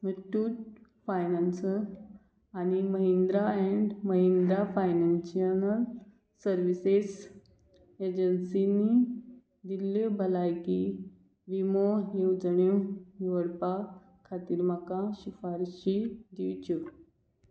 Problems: none marked